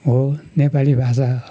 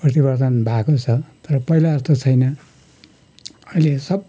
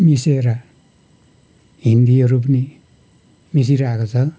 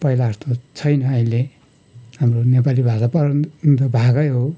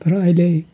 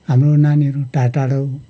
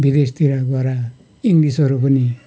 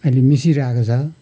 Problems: background sounds at intervals